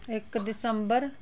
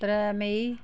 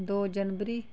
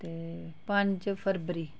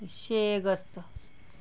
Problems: background conversations at intervals